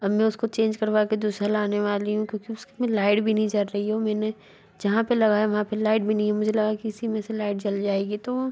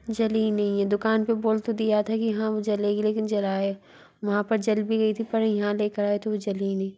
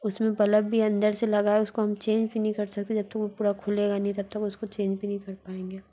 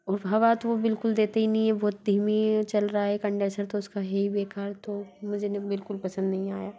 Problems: constant background noise, background conversations at intervals